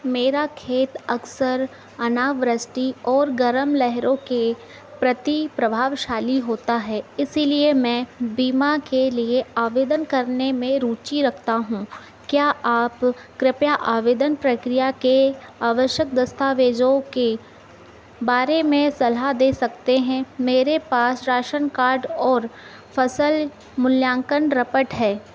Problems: background sounds at intervals